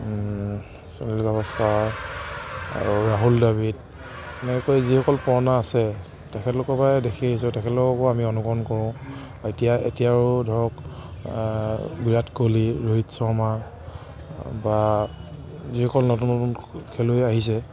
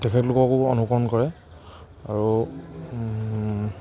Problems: none marked